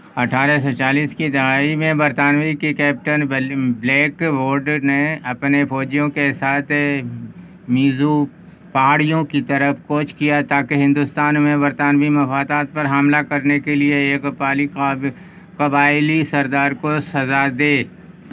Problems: constant background noise